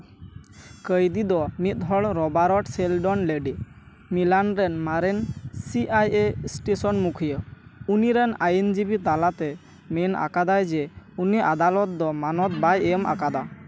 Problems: constant background noise